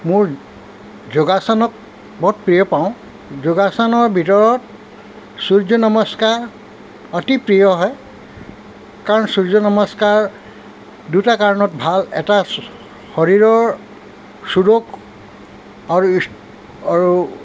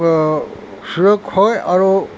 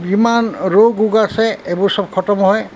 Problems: none marked